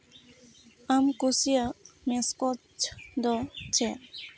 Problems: none marked